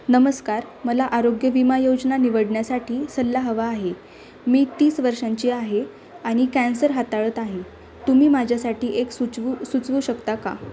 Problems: none marked